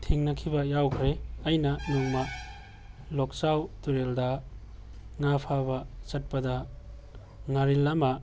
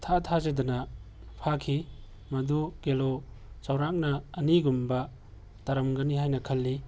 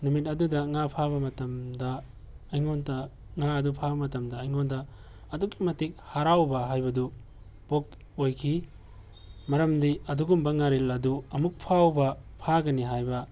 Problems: background sounds at intervals